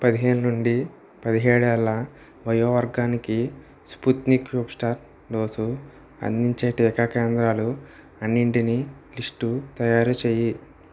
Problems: none marked